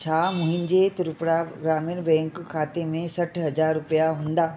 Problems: constant background noise, echo